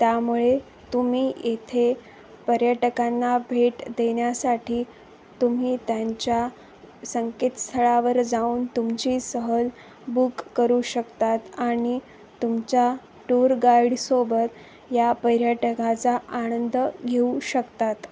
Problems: none marked